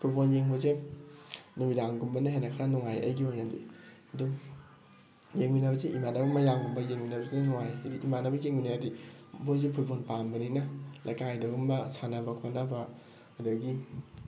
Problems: background sounds at intervals